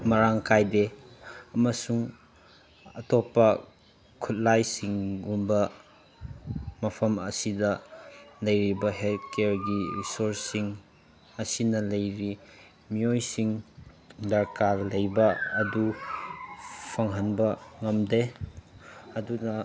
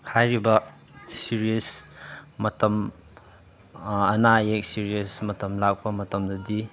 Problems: background sounds at intervals